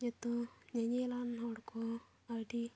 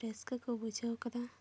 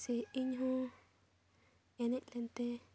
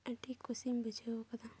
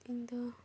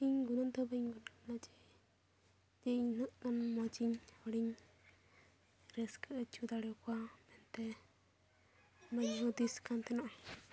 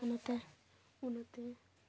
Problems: none marked